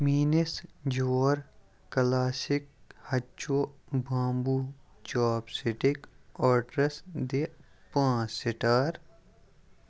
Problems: background sounds at intervals